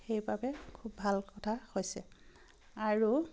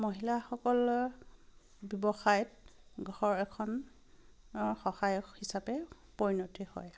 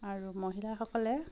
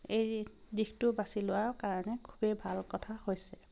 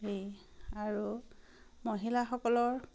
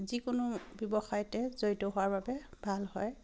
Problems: constant background noise